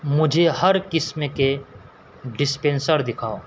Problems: constant background noise